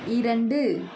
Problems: constant background noise